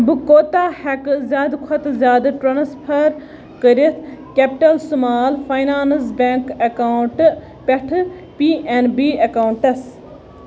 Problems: constant background noise